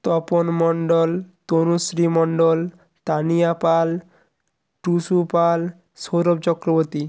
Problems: constant background noise